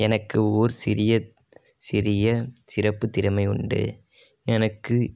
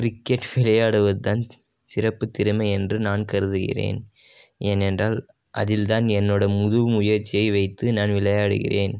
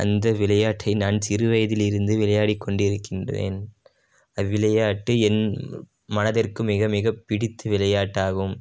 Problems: none marked